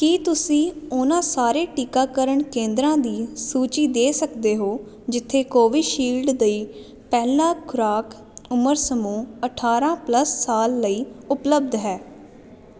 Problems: constant background noise